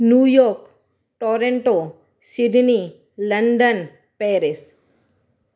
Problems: none marked